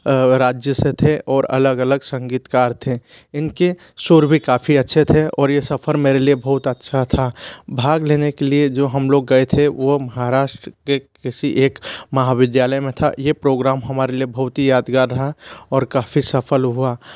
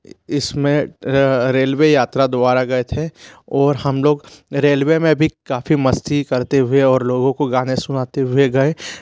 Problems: constant background noise